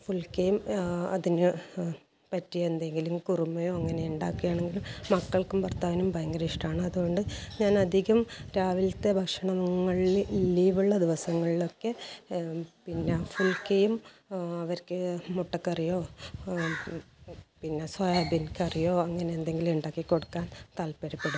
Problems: background sounds at intervals, low volume